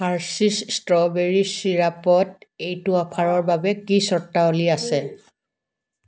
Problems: background conversations at intervals